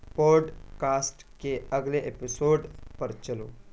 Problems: constant background noise, low volume